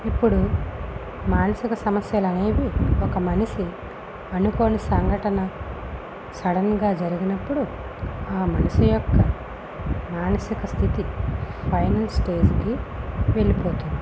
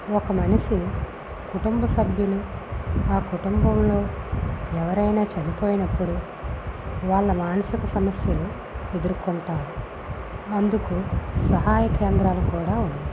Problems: constant background noise